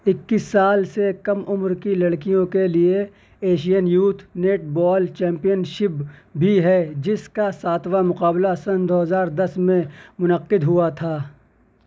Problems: none marked